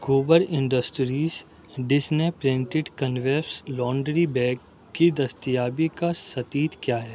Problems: background sounds at intervals